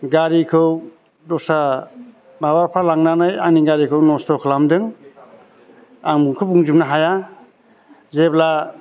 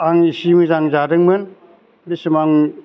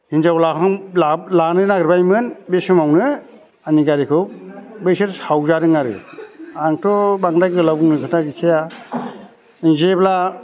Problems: constant background noise